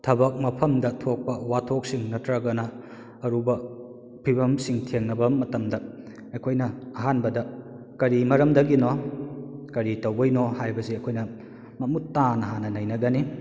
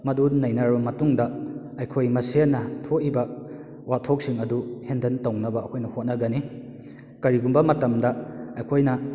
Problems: echo